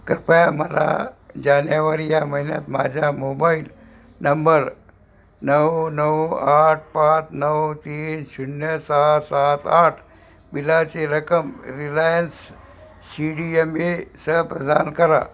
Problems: none marked